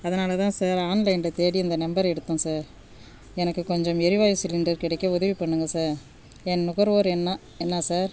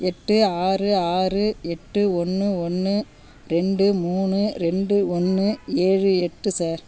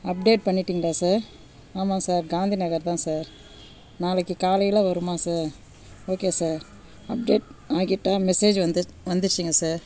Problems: background sounds at intervals